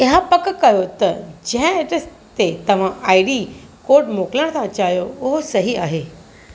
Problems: constant background noise